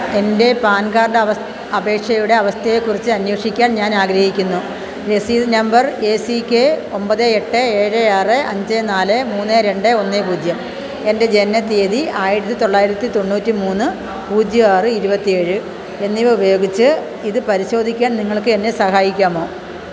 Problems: constant background noise